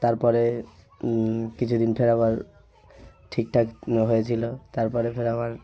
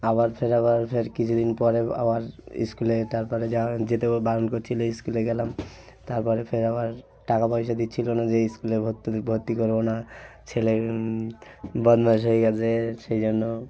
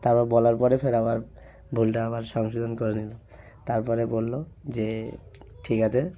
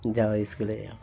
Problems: none marked